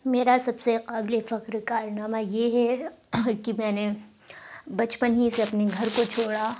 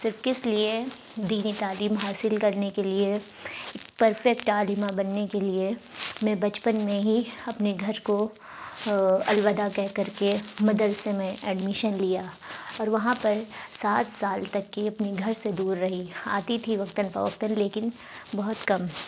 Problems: constant background noise